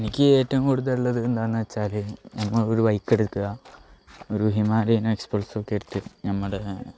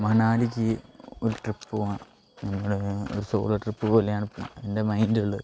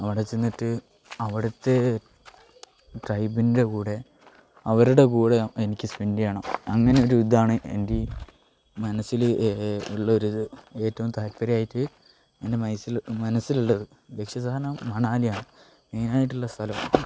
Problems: low volume